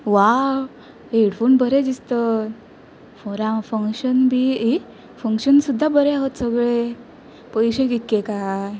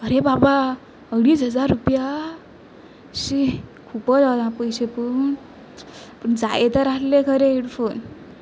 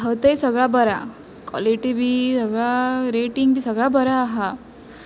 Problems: constant background noise